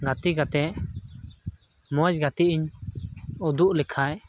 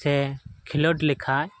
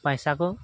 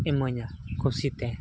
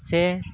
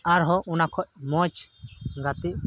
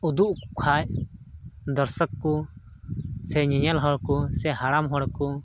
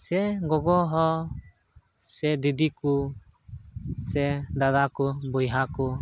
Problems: constant background noise